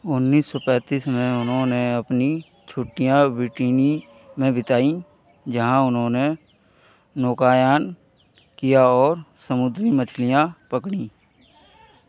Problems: background conversations at intervals